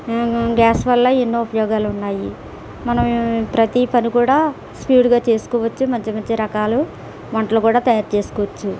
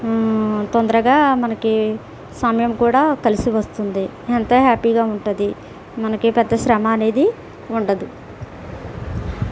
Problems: constant background noise